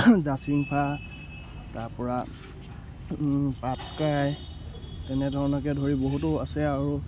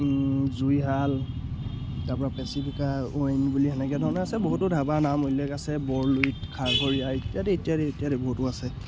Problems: background sounds at intervals